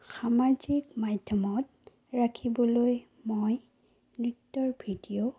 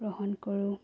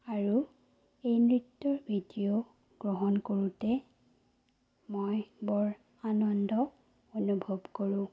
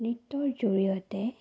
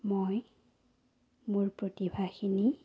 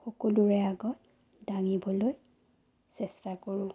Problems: low volume